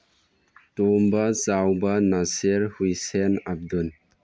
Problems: none marked